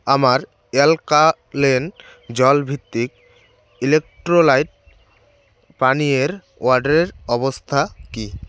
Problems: constant background noise